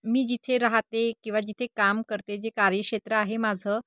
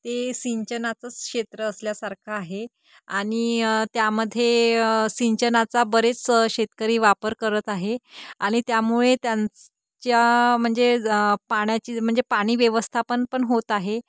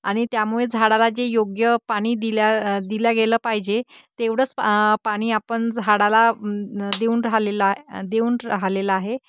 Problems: constant background noise